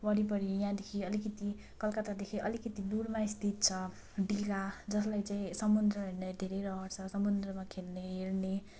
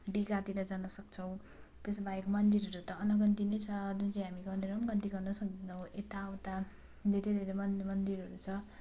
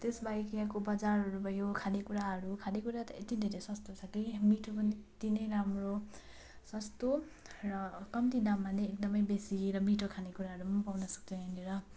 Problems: none marked